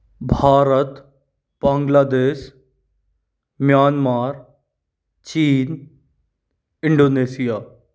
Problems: background sounds at intervals